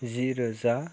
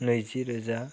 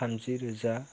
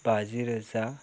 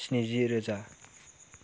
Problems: none marked